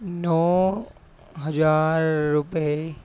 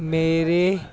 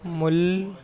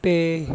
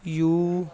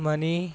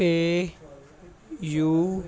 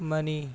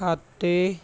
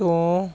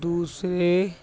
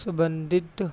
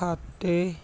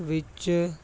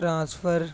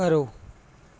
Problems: none marked